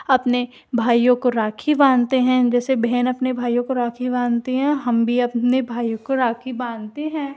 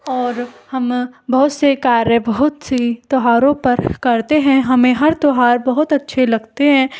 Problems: background sounds at intervals